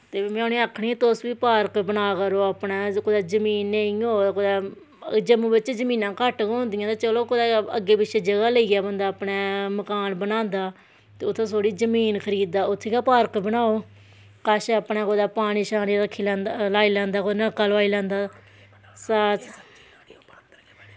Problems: none marked